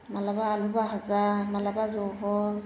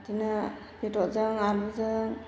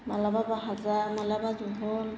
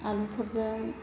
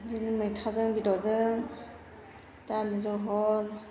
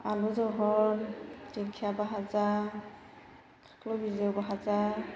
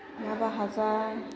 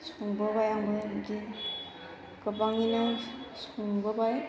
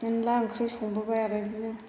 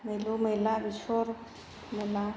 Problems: constant background noise